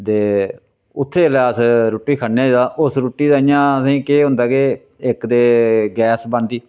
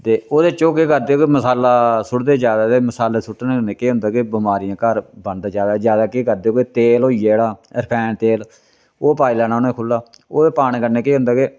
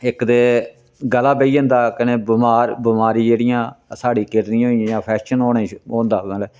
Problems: none marked